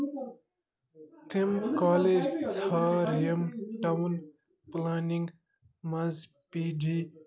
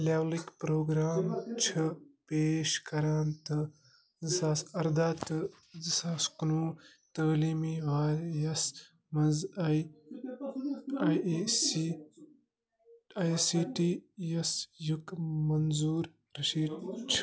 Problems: constant background noise